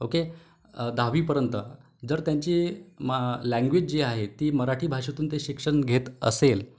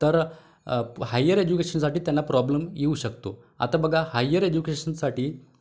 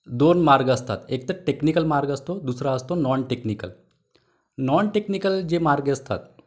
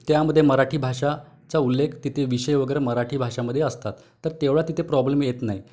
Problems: background sounds at intervals